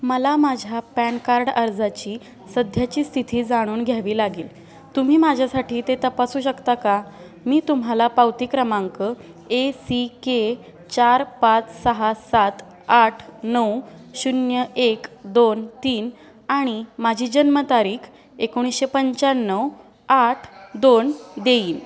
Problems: none marked